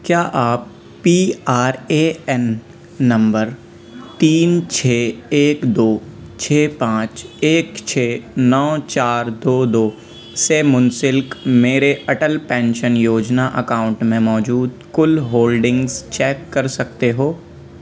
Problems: constant background noise, continuous background conversations